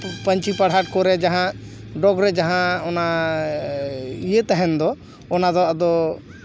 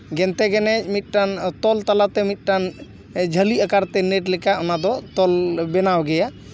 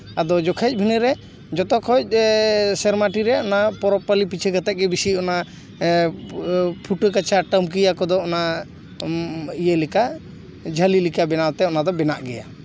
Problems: background sounds at intervals